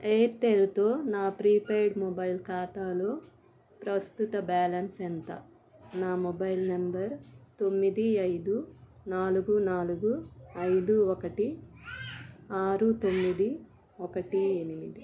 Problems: background conversations at intervals